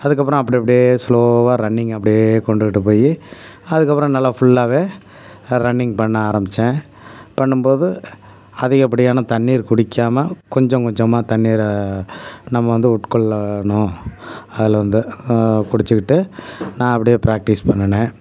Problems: none marked